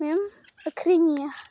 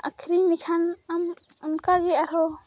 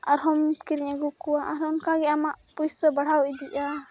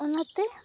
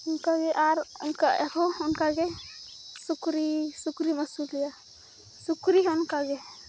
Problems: constant background noise